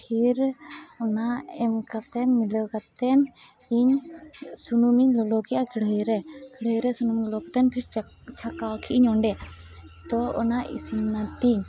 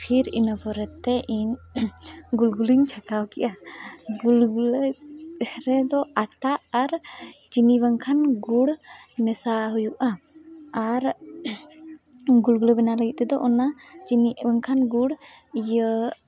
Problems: constant background noise, background conversations at intervals